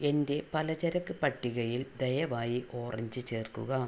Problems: low volume